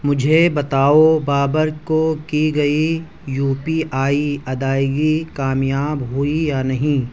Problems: none marked